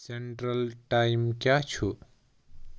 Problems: none marked